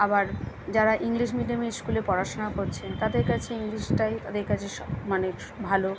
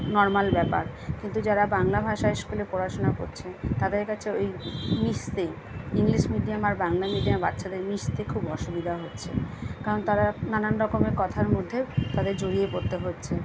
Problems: constant background noise